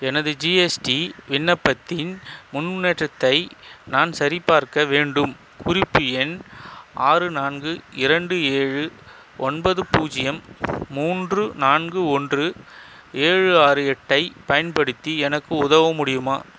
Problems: constant background noise